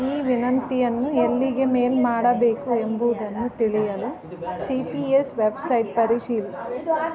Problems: background sounds at intervals